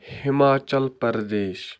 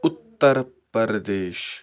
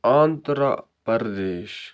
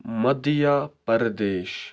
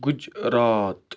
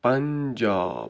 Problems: none marked